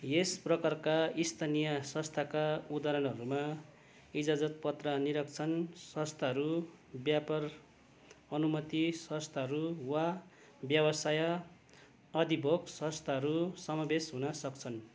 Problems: none marked